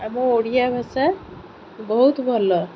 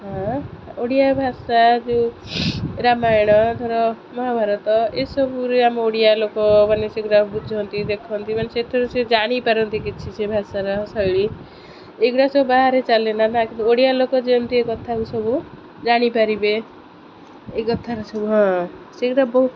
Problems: constant background noise